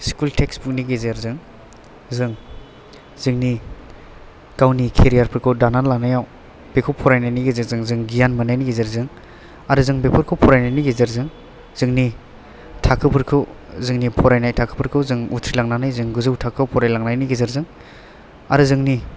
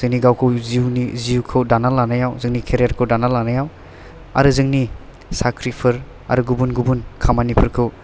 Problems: none marked